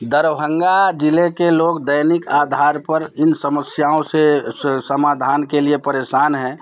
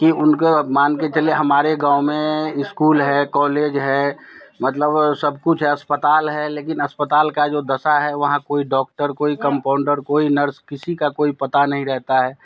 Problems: none marked